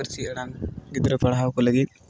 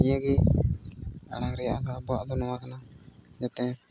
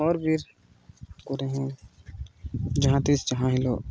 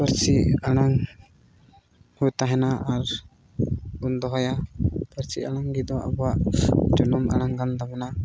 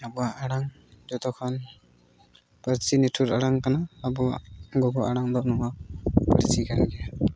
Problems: constant background noise